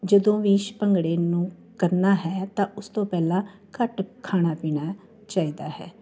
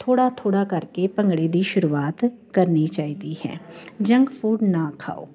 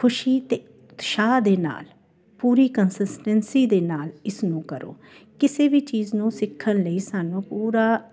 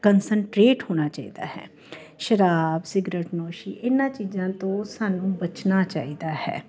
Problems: none marked